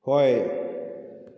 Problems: none marked